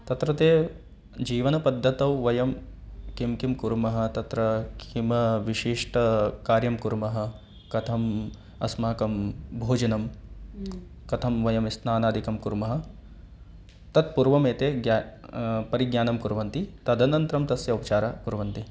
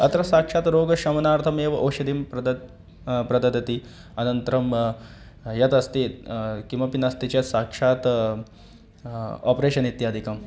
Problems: background conversations at intervals